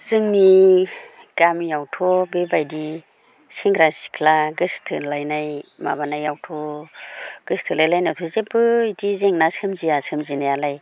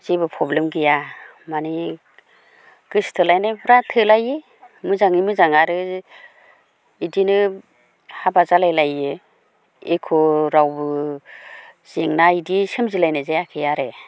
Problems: none marked